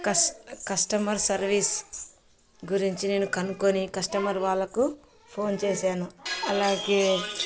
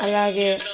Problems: background sounds at intervals, background conversations at intervals